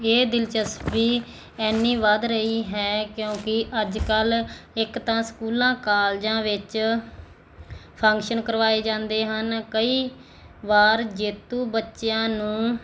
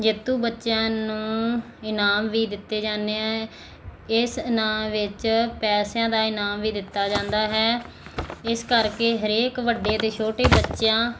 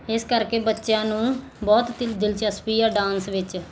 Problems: none marked